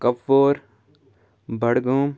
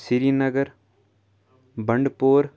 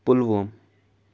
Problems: background sounds at intervals